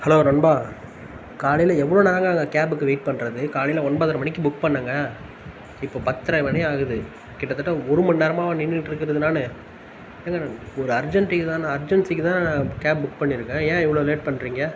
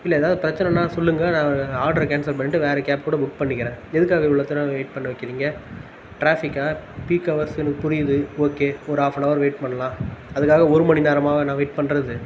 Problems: constant background noise